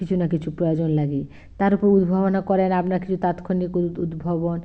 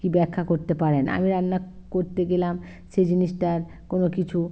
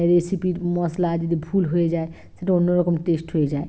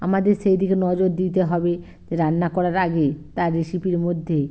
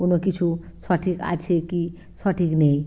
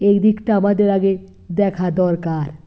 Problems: background sounds at intervals